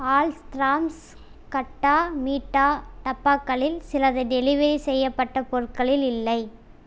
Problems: none marked